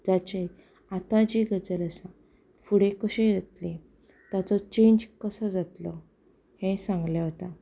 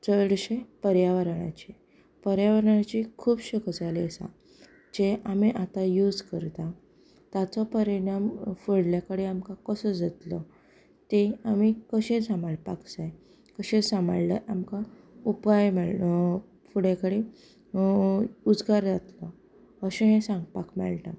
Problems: none marked